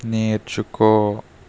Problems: constant background noise